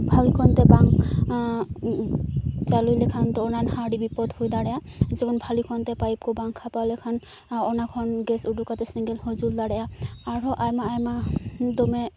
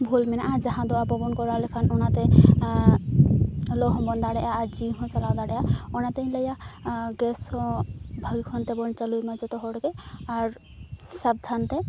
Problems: none marked